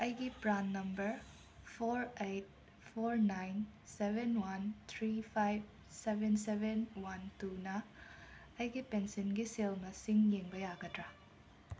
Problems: background sounds at intervals